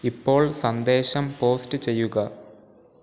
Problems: background sounds at intervals